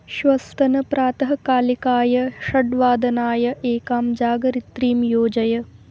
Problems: constant background noise